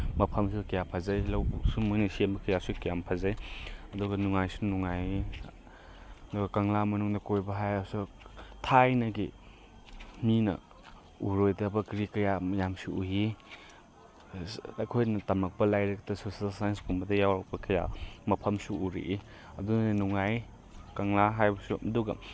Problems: none marked